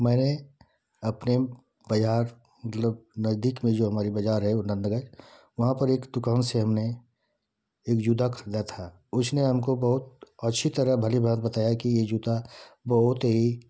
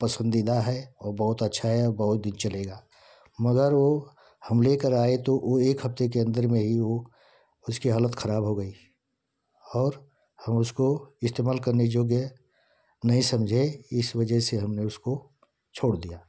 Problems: constant background noise